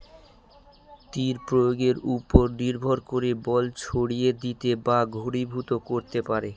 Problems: constant background noise